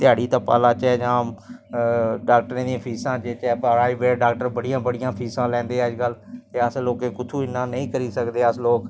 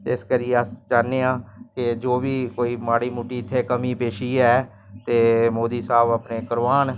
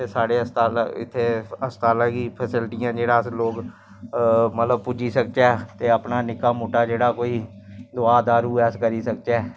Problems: constant background noise